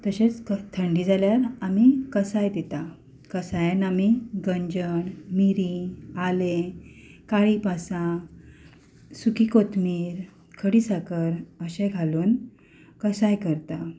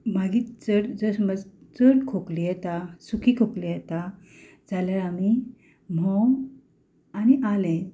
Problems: background sounds at intervals